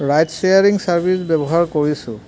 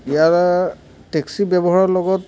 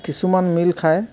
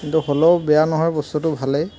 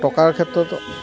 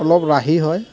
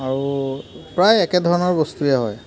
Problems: constant background noise, background conversations at intervals